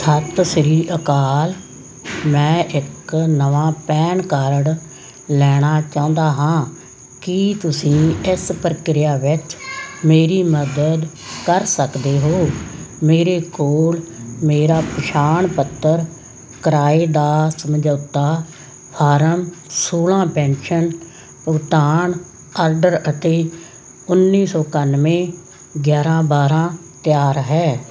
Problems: constant background noise